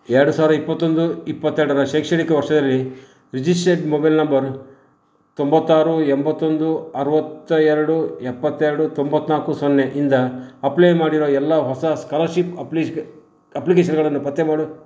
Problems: none marked